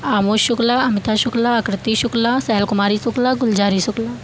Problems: constant background noise